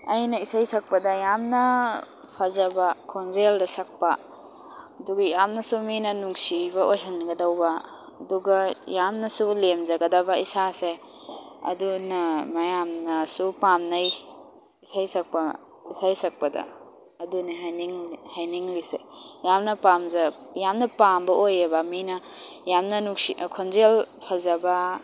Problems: constant background noise